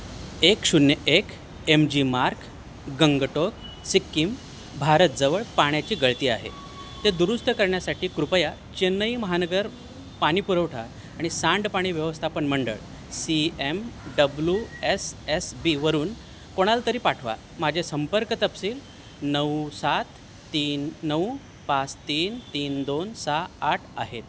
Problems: none marked